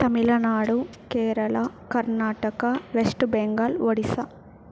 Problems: background sounds at intervals